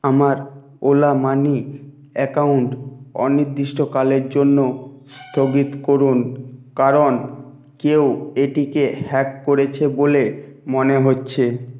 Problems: background sounds at intervals